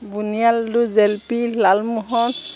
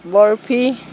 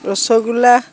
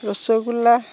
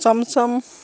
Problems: none marked